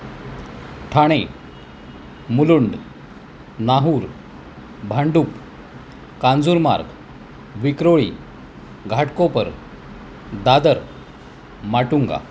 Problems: constant background noise